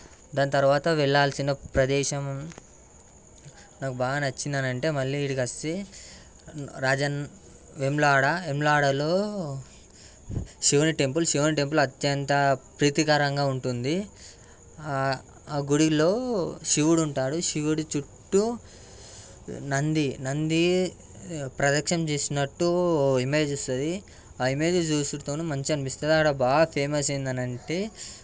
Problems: background sounds at intervals